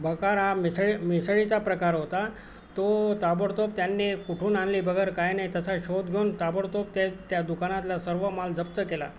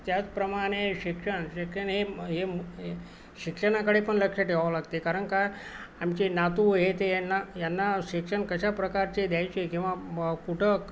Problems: constant background noise